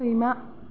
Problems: low volume